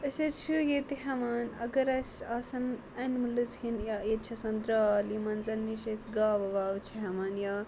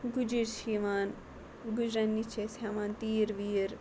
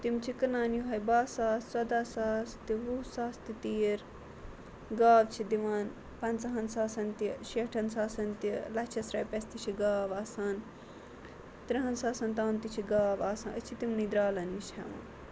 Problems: constant background noise